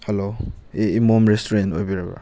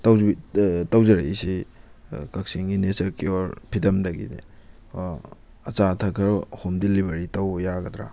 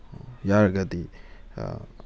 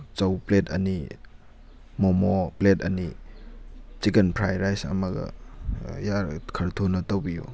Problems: constant background noise